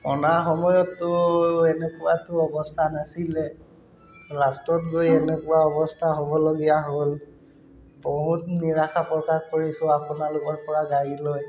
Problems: constant background noise